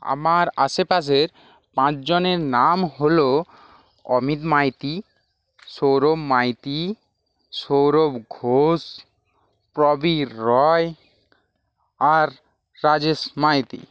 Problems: constant background noise